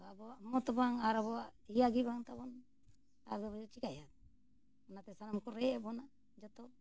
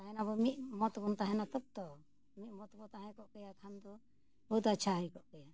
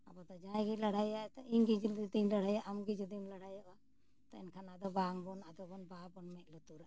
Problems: none marked